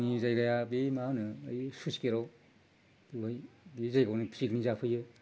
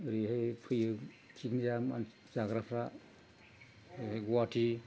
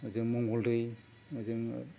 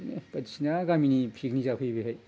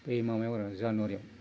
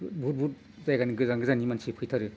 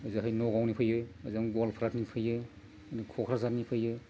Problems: low volume